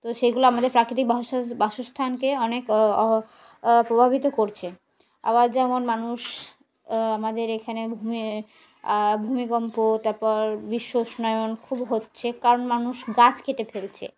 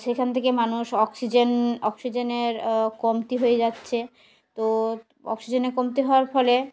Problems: background sounds at intervals